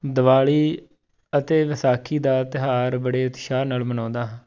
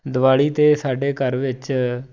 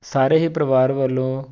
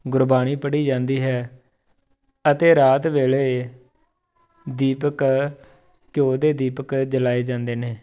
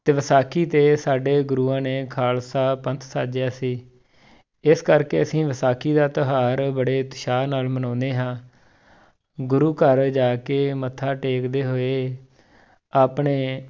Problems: background sounds at intervals